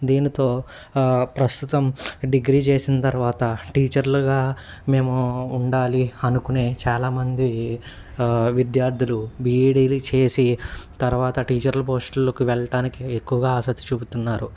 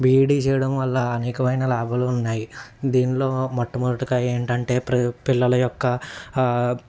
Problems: constant background noise